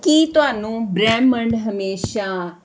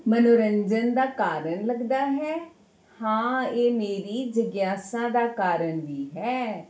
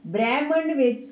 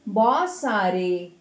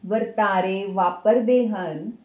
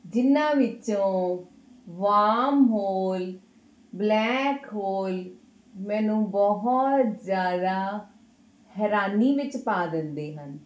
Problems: background sounds at intervals